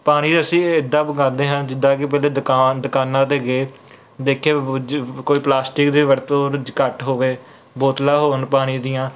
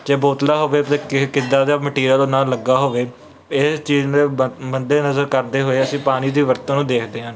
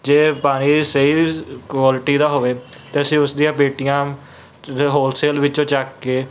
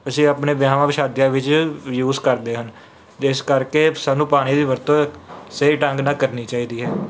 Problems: background sounds at intervals